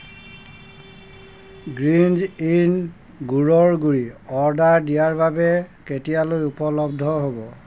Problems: constant background noise